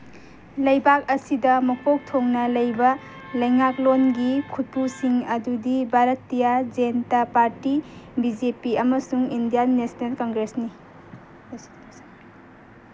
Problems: background sounds at intervals